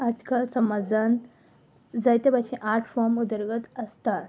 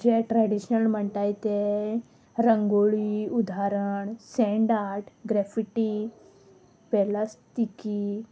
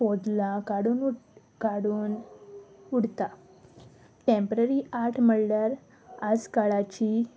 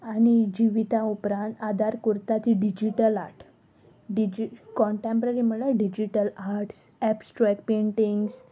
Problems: constant background noise